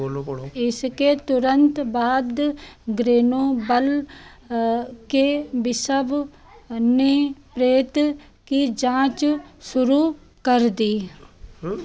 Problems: constant background noise, background conversations at intervals